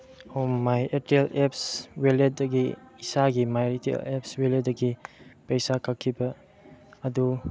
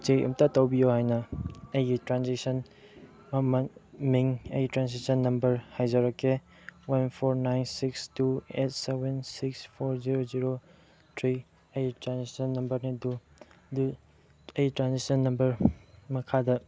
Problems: background sounds at intervals, low volume